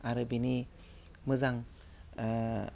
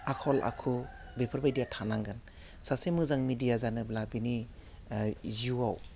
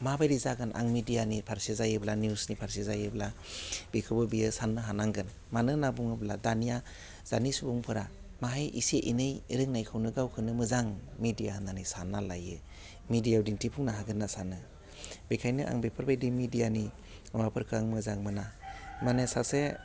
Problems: constant background noise